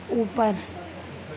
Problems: constant background noise, low volume